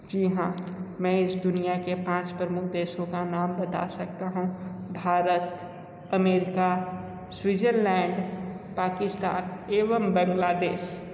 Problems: constant background noise